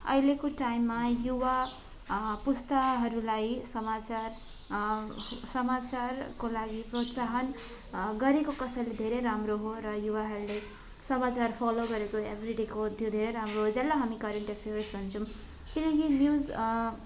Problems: constant background noise, continuous background conversations